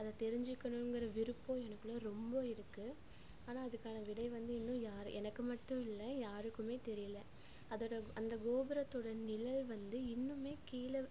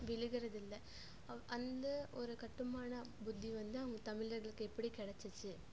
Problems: low volume